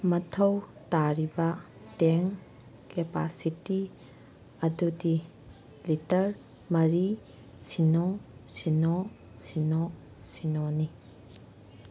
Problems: none marked